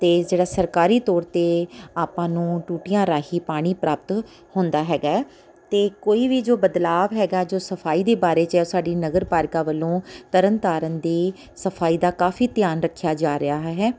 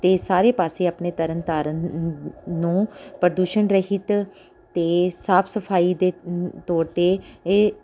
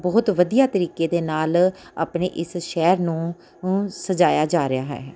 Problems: none marked